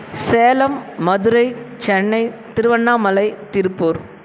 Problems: none marked